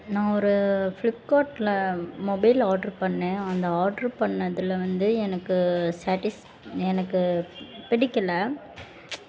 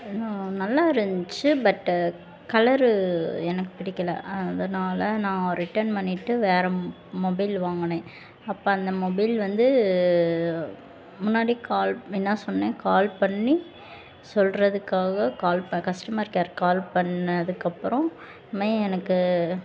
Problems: constant background noise, background conversations at intervals